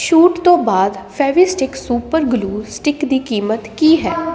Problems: constant background noise